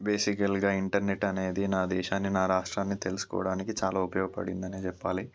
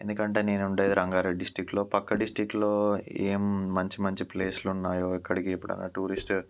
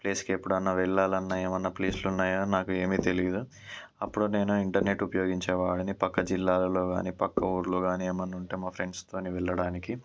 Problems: none marked